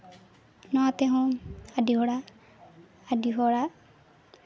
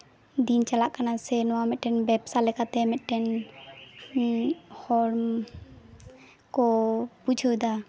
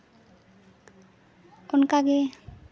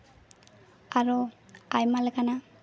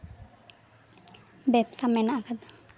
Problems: constant background noise, continuous background conversations